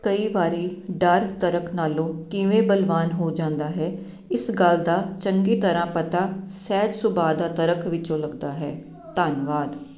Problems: constant background noise